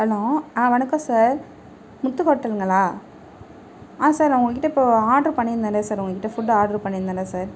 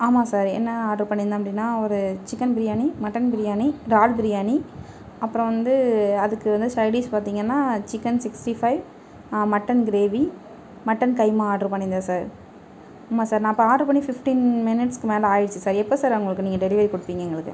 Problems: none marked